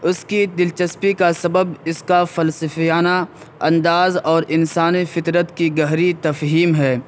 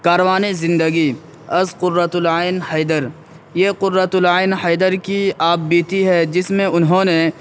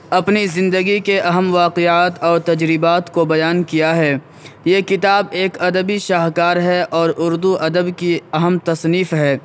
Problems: background sounds at intervals